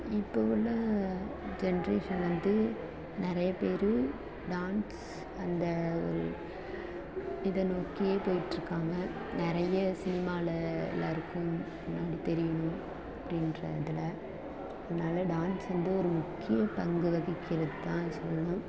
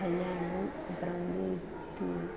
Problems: constant background noise